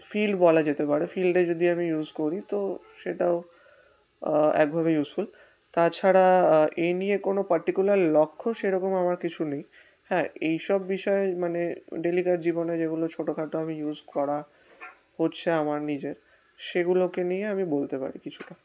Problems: constant background noise